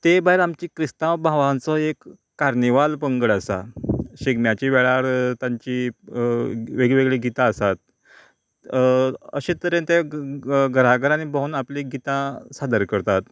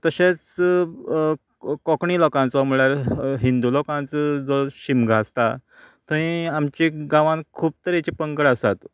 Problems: none marked